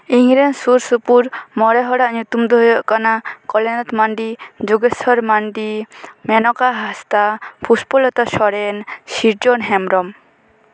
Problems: background sounds at intervals